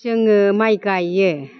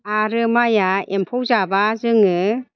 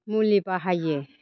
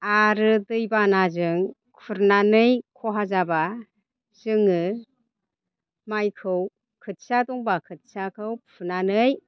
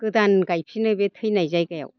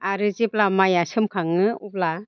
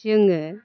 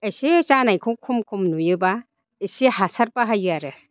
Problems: constant background noise